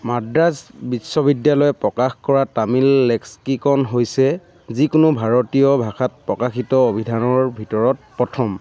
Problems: background conversations at intervals